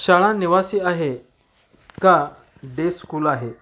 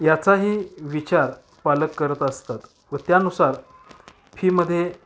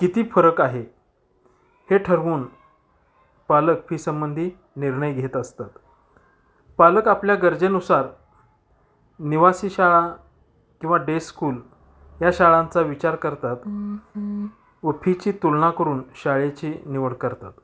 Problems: background sounds at intervals, background conversations at intervals